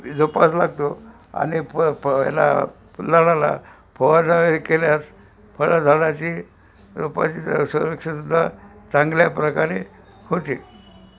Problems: constant background noise